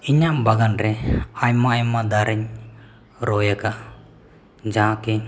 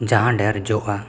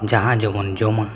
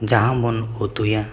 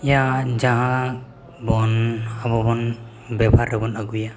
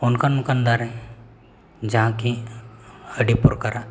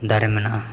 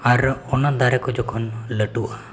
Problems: echo